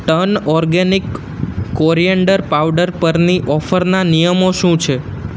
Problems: none marked